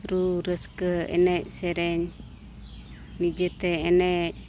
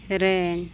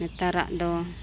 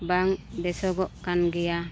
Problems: none marked